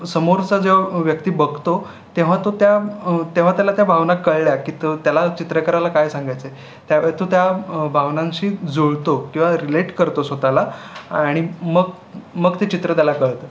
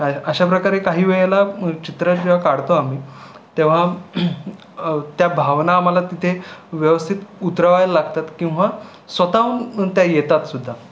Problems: constant background noise, background conversations at intervals